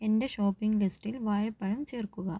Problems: low volume